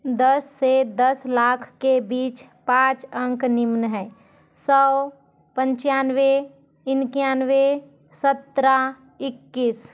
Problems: none marked